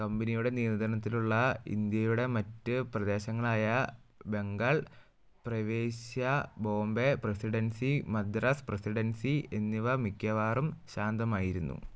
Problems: low volume